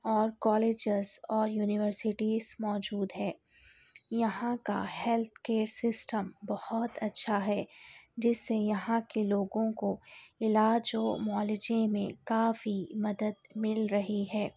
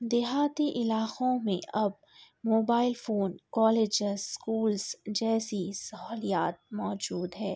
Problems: none marked